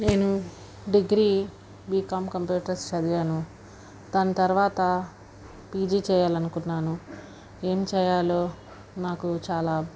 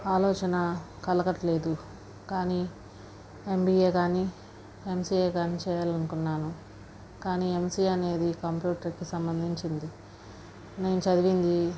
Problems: background sounds at intervals, low volume